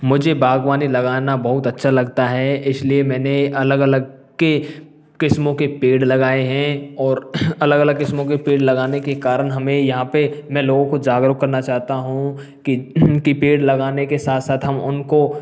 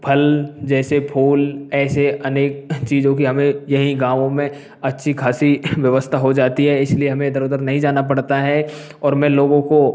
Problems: background sounds at intervals